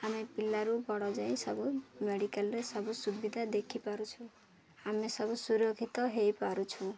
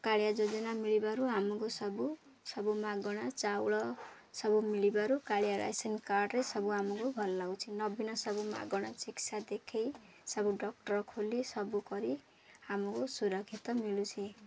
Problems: constant background noise